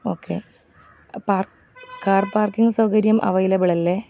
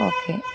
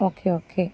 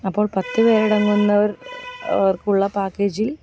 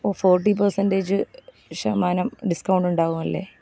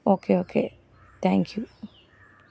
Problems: background sounds at intervals